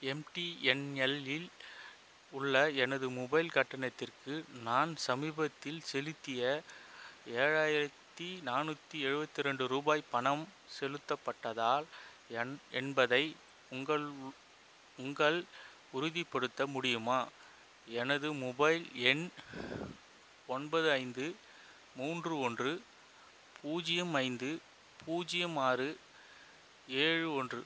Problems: constant background noise